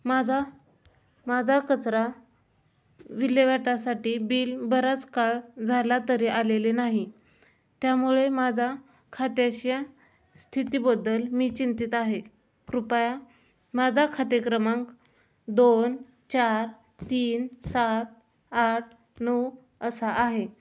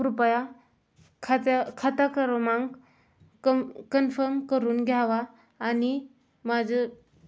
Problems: background sounds at intervals